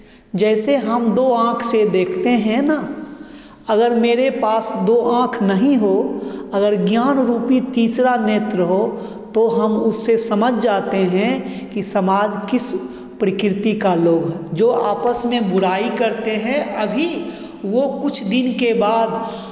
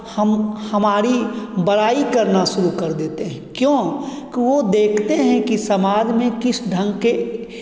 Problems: background sounds at intervals